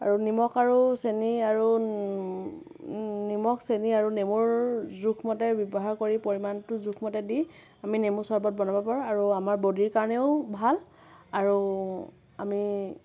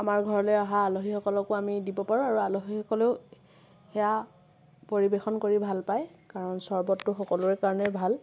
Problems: none marked